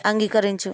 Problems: constant background noise